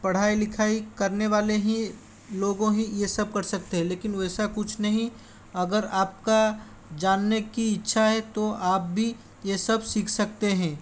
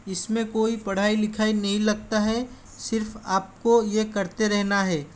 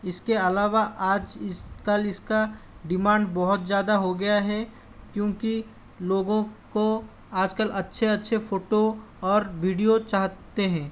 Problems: constant background noise